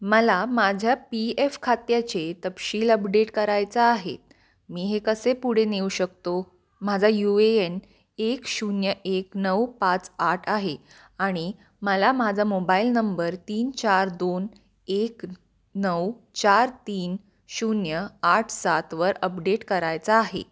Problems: none marked